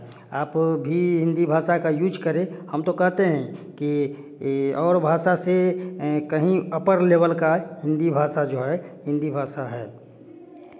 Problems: none marked